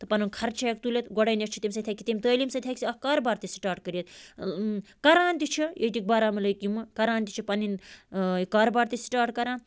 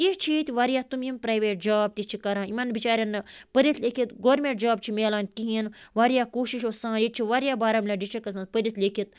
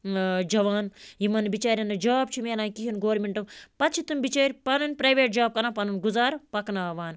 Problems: background sounds at intervals